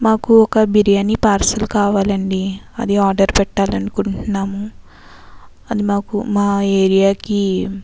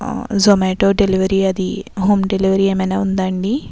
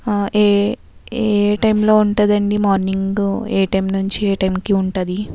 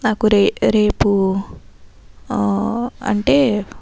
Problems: constant background noise